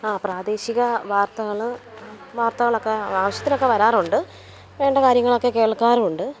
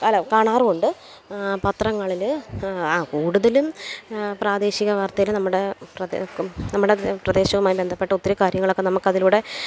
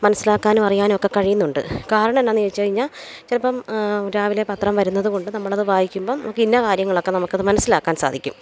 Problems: none marked